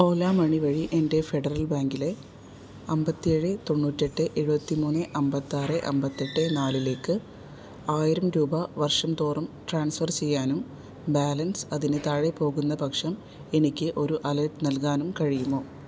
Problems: background sounds at intervals